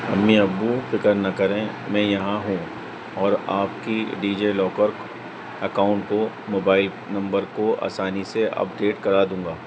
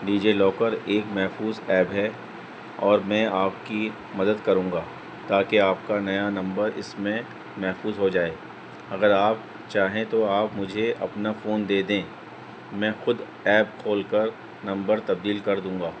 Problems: constant background noise